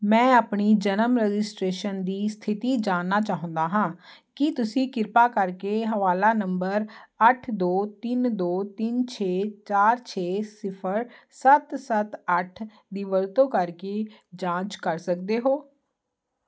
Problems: constant background noise